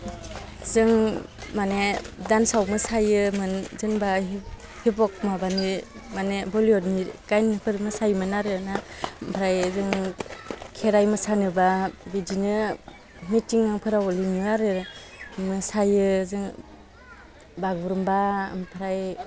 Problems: constant background noise